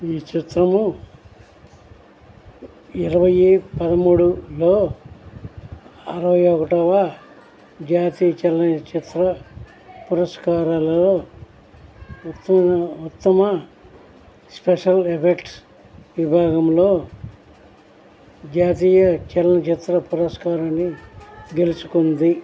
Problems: background conversations at intervals